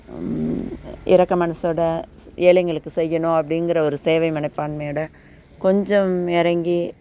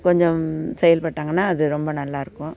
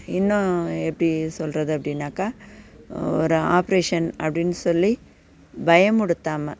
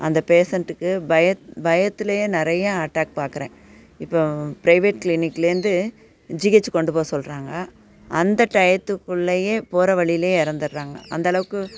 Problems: background sounds at intervals